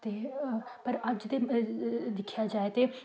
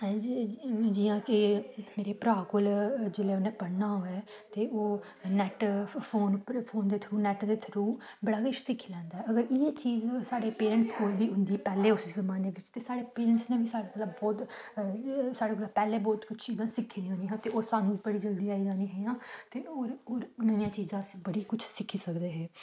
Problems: none marked